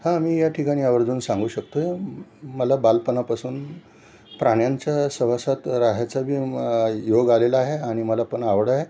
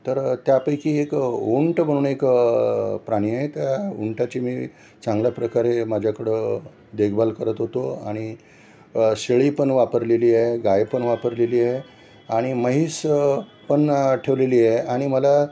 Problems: none marked